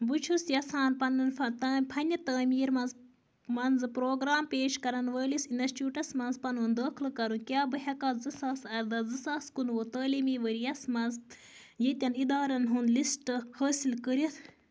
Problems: constant background noise